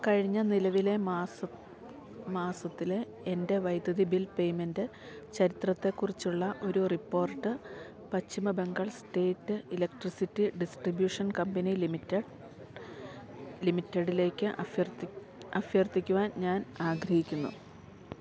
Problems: background sounds at intervals